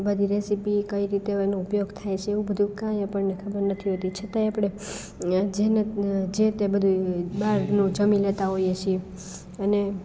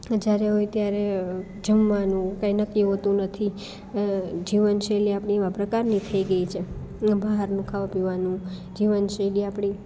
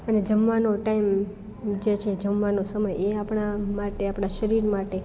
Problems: none marked